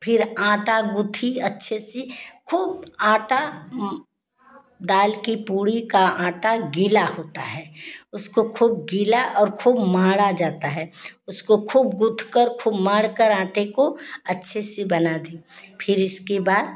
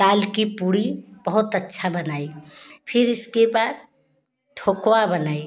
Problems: none marked